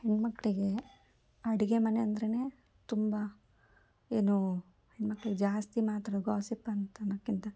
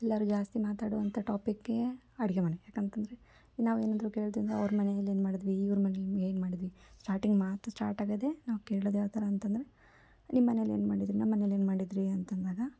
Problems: none marked